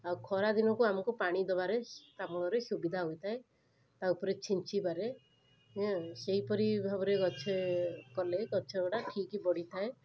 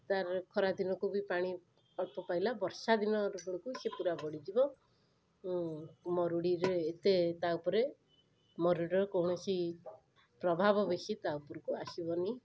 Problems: none marked